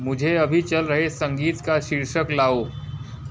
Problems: background sounds at intervals